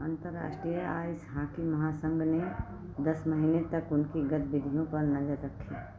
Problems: constant background noise, low volume